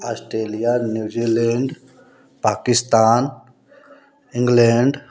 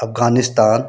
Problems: constant background noise